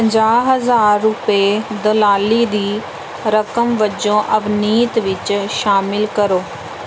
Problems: background sounds at intervals